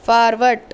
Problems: constant background noise